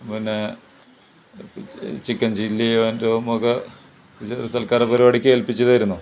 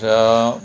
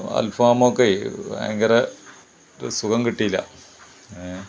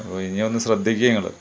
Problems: background sounds at intervals